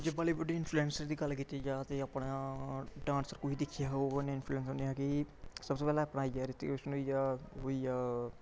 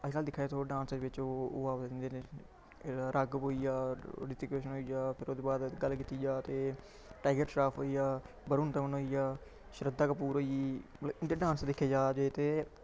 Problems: background conversations at intervals